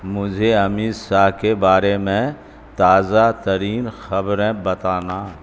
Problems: constant background noise